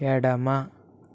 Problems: none marked